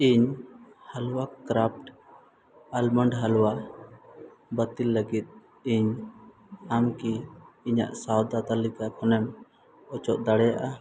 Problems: none marked